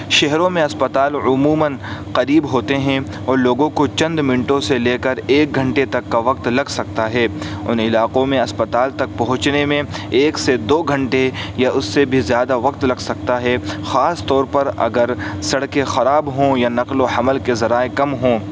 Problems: constant background noise